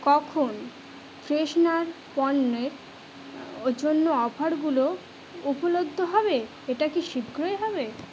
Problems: none marked